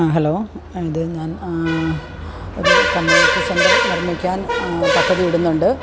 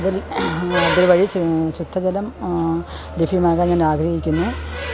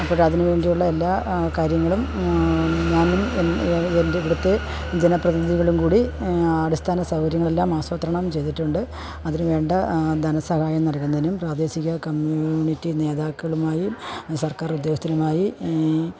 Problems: background sounds at intervals